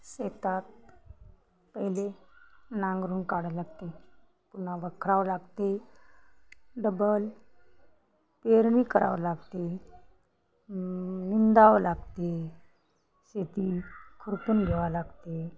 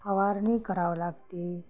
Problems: none marked